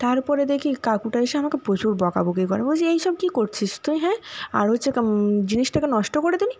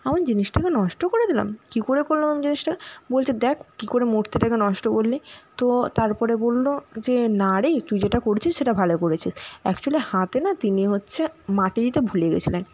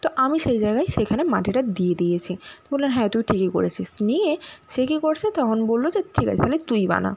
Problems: none marked